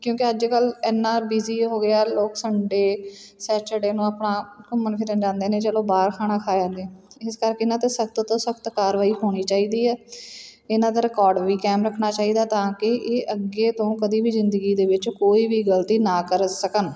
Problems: background sounds at intervals